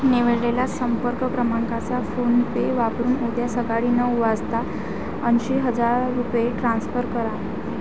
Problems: none marked